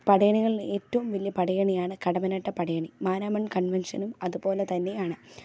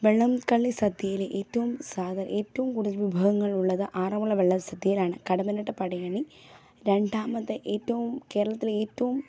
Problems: low volume